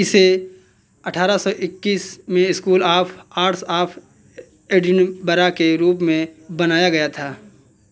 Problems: constant background noise, continuous background conversations